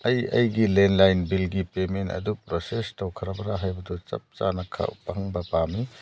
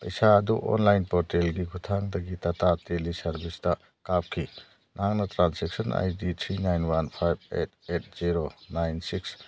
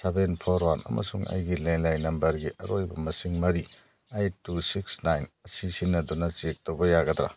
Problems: none marked